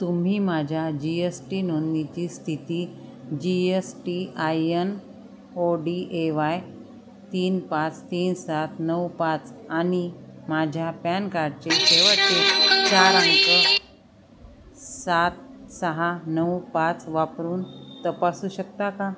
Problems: constant background noise, background conversations at intervals